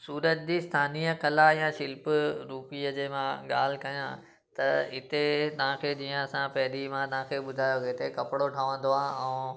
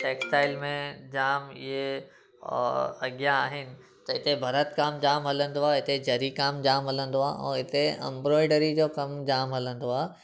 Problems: background sounds at intervals